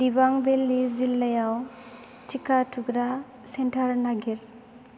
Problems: low volume